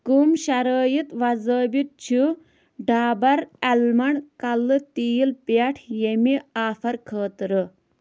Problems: background sounds at intervals